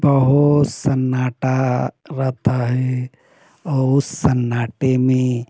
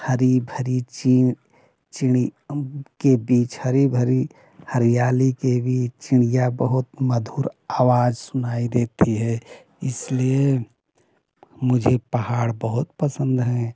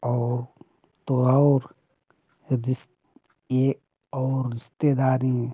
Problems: none marked